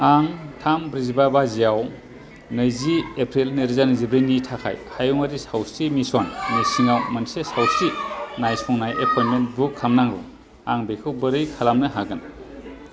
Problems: constant background noise